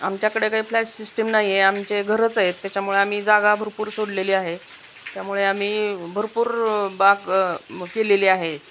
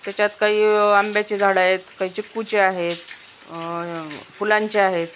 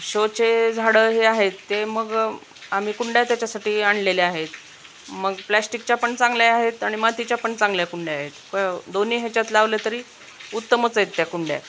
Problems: none marked